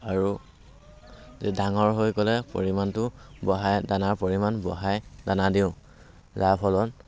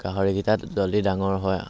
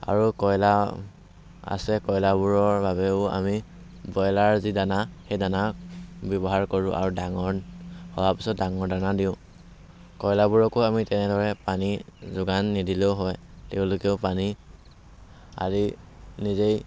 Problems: constant background noise